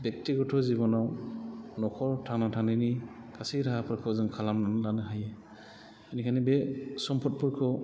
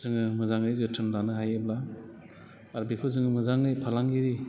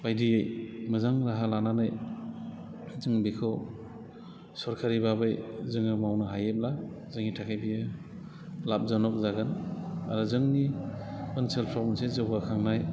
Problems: constant background noise